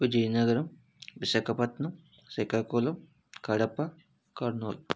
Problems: low volume